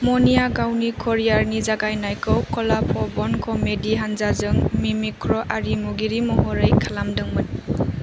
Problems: constant background noise